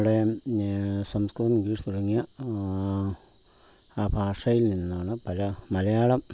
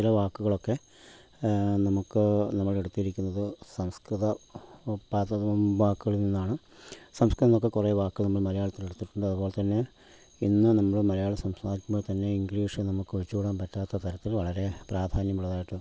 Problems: background sounds at intervals